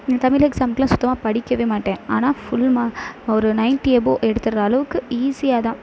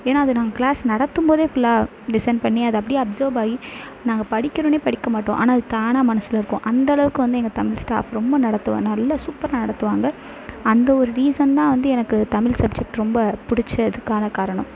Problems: constant background noise